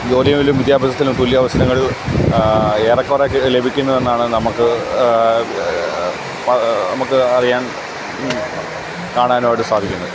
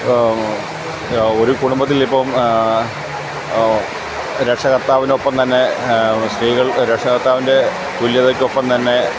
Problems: constant background noise